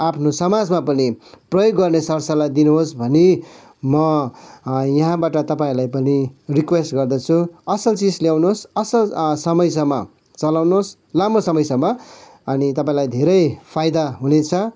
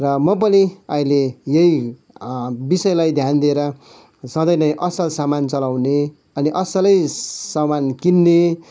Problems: background sounds at intervals